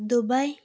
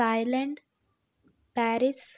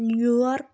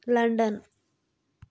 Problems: none marked